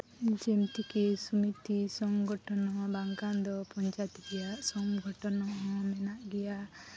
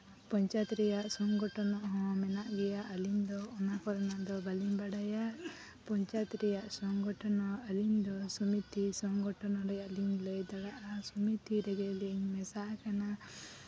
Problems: background sounds at intervals